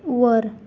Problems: none marked